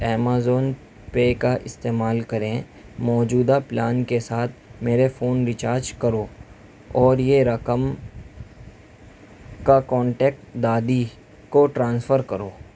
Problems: constant background noise